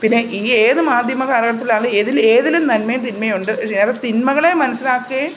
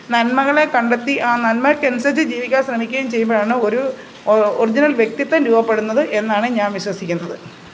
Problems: constant background noise